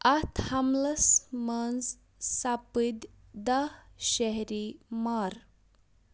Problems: background sounds at intervals